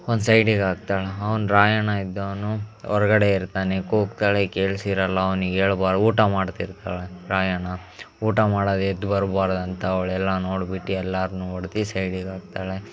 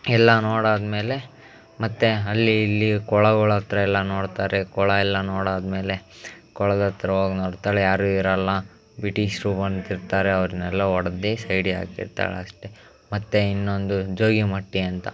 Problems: background sounds at intervals